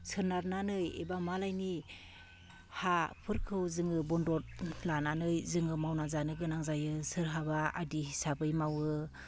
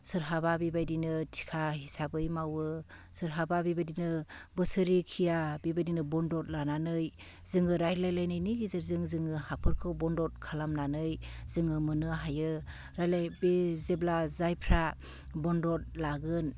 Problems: none marked